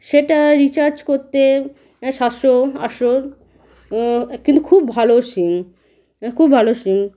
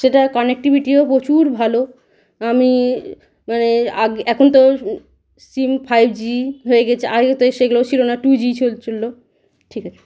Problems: background sounds at intervals